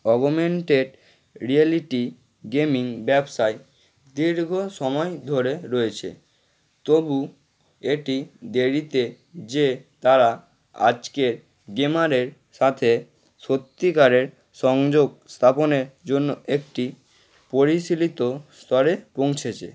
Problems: none marked